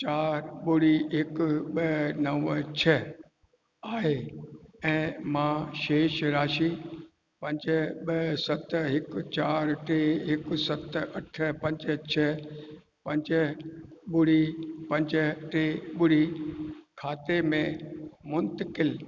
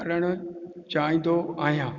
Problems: constant background noise, echo